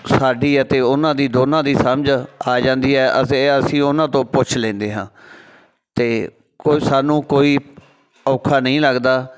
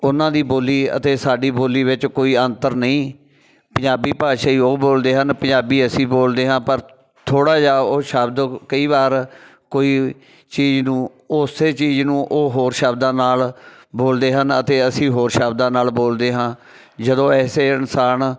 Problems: none marked